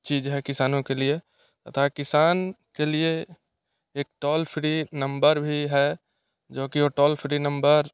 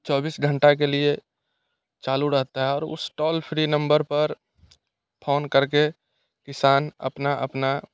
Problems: none marked